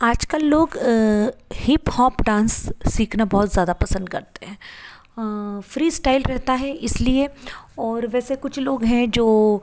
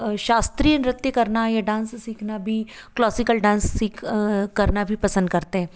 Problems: none marked